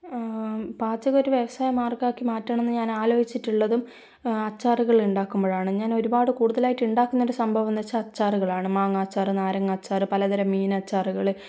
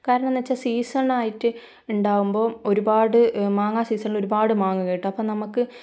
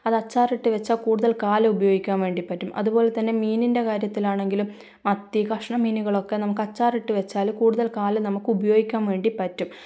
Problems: low volume